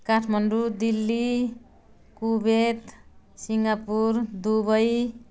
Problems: none marked